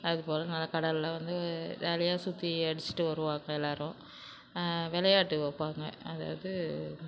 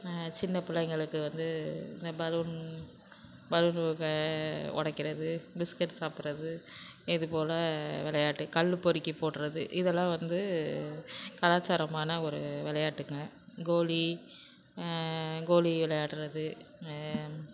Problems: constant background noise